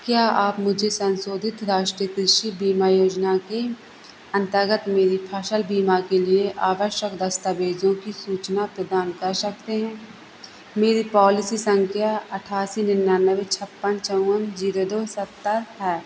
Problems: constant background noise